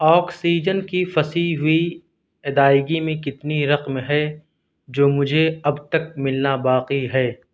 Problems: none marked